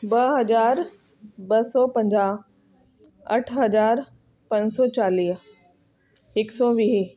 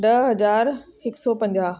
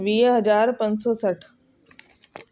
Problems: constant background noise